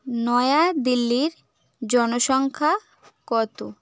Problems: background sounds at intervals